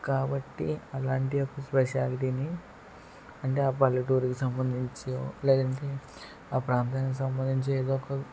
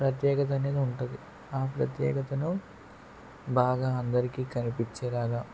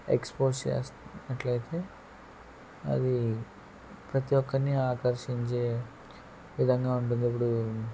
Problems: background sounds at intervals, low volume